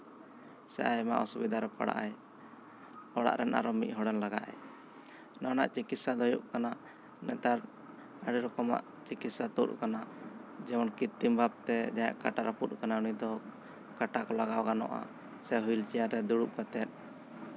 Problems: constant background noise